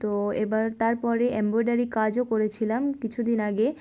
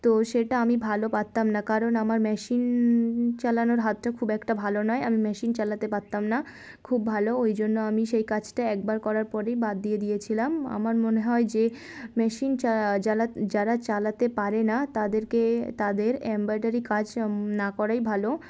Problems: constant background noise